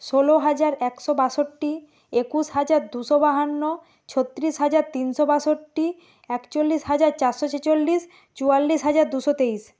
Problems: constant background noise